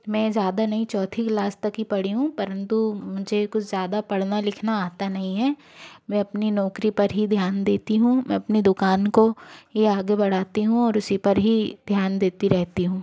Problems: constant background noise